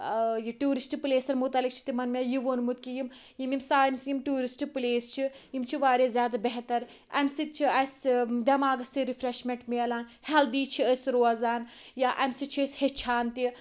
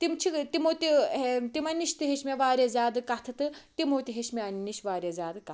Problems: constant background noise